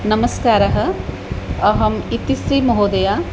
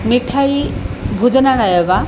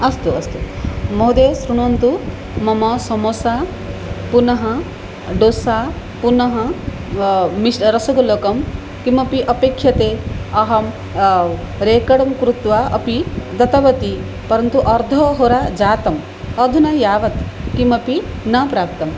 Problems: background sounds at intervals